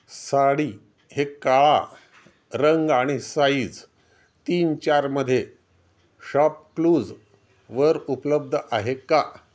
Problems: none marked